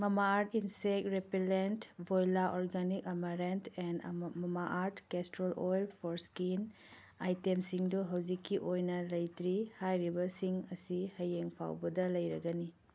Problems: none marked